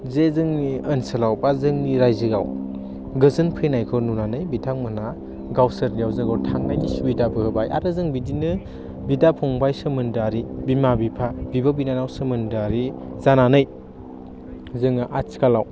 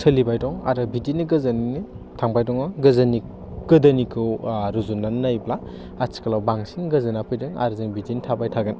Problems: none marked